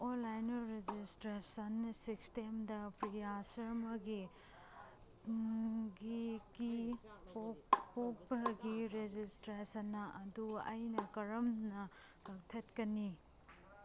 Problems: none marked